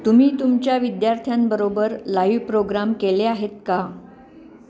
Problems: none marked